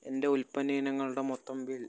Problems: none marked